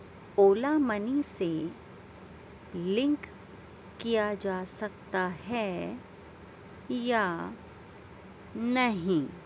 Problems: none marked